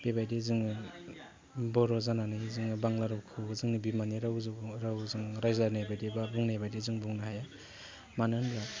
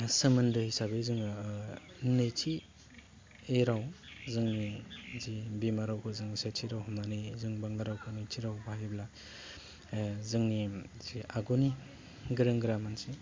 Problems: none marked